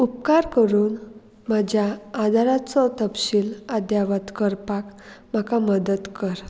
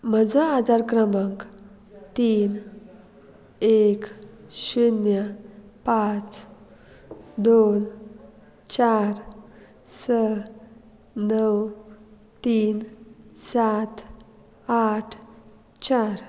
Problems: background conversations at intervals